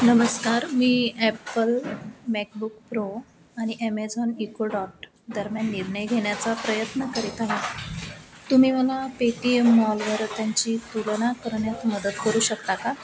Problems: constant background noise, low volume